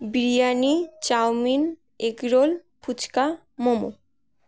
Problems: none marked